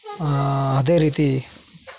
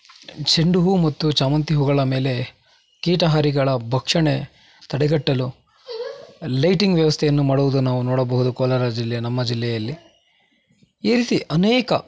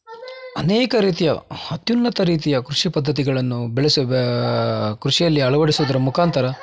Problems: constant background noise